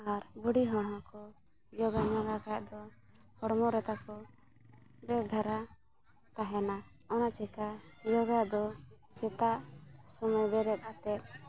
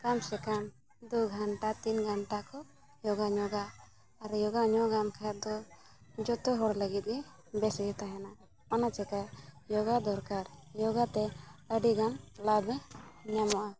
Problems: background sounds at intervals, continuous background conversations